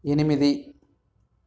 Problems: background sounds at intervals